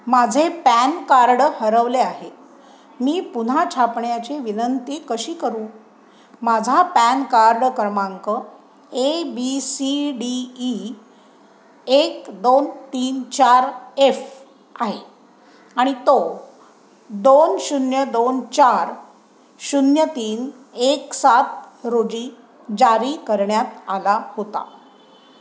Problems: constant background noise